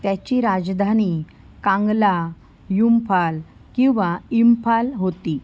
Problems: none marked